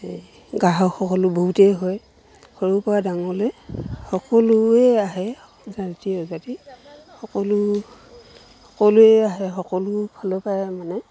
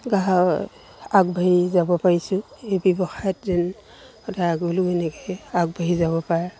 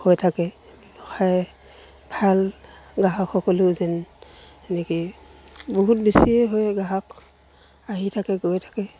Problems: none marked